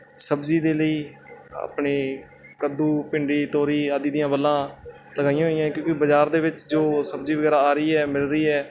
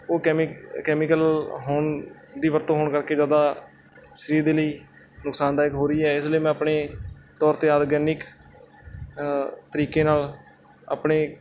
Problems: background sounds at intervals